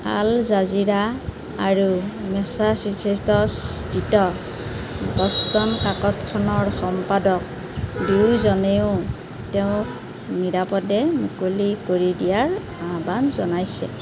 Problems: none marked